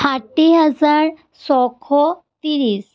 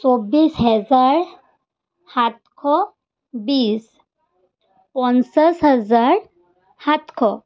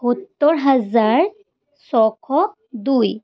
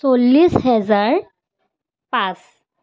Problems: none marked